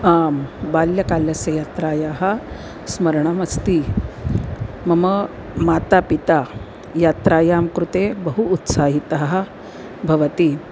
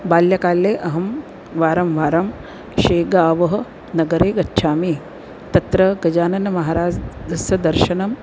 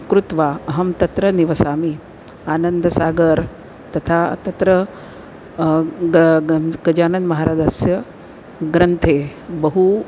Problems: constant background noise